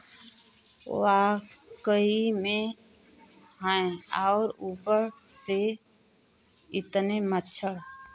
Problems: none marked